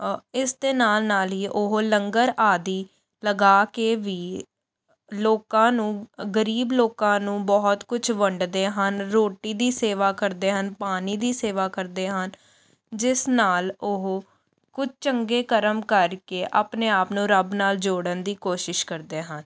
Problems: none marked